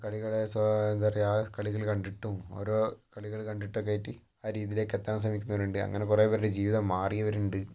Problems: low volume